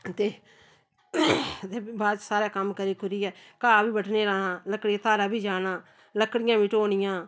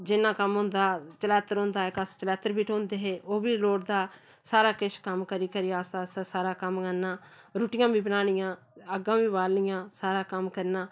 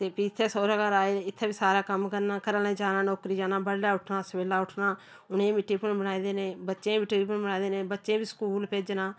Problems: none marked